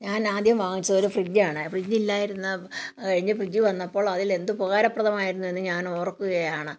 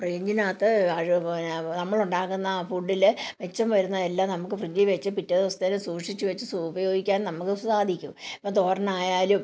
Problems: background sounds at intervals